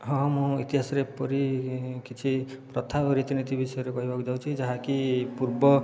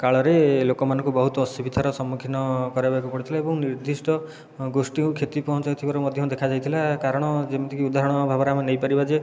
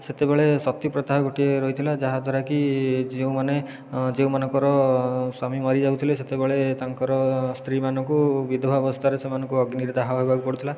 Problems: none marked